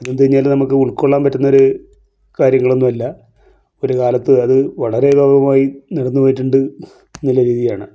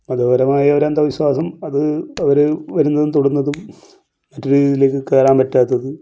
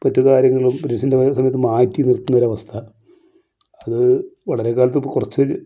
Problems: none marked